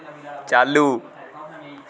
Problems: constant background noise